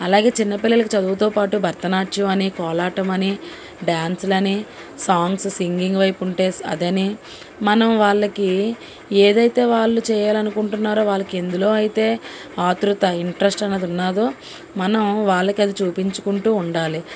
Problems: constant background noise